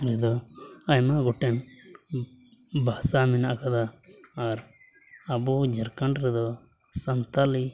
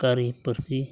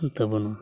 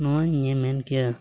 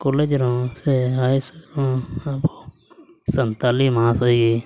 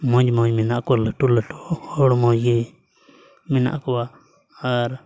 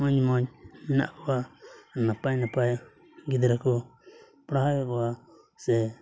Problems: low volume